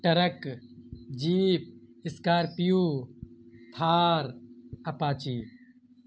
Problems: constant background noise